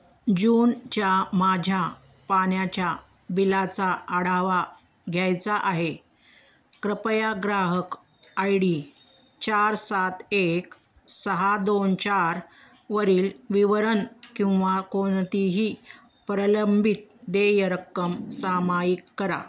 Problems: background sounds at intervals, background conversations at intervals